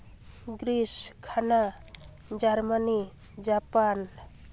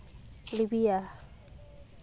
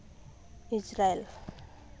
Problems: constant background noise, continuous background conversations